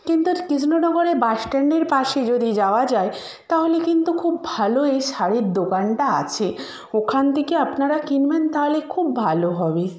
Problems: background conversations at intervals